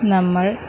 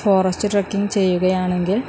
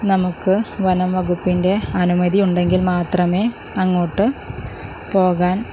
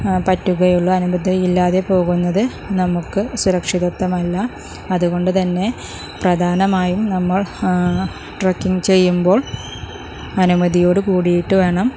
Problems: none marked